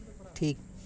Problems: background conversations at intervals